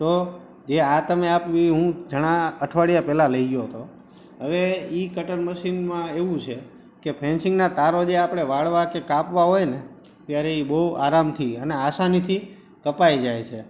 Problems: none marked